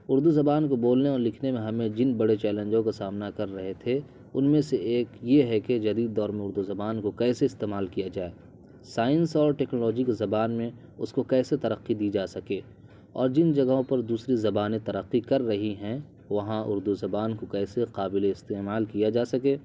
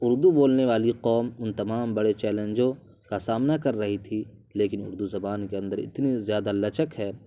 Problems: constant background noise